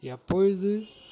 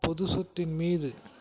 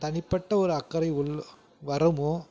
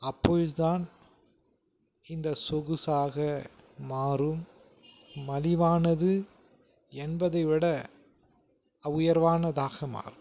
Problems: background sounds at intervals